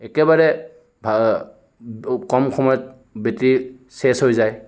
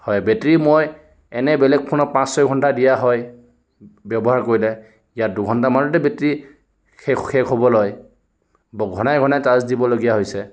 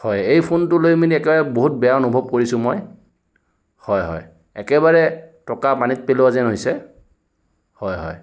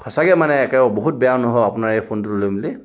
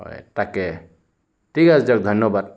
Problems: background sounds at intervals